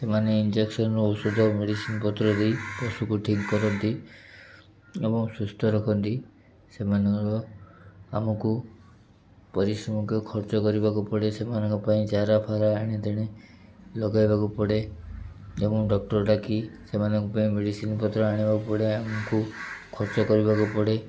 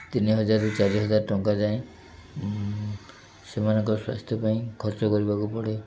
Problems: background sounds at intervals